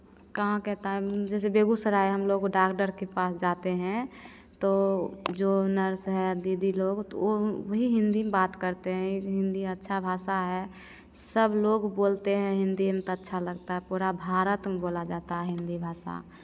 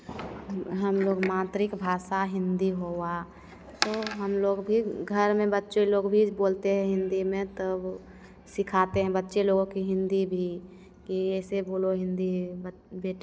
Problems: none marked